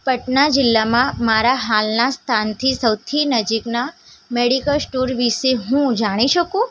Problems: none marked